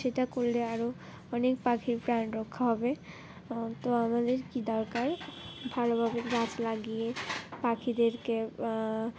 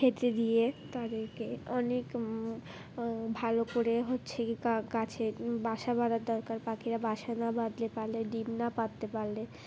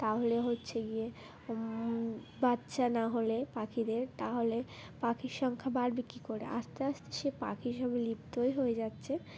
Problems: none marked